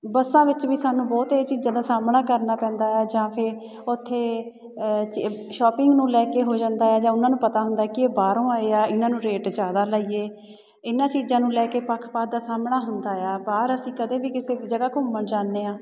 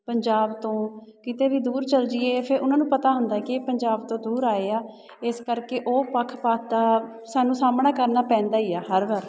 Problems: background sounds at intervals